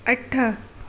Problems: constant background noise, echo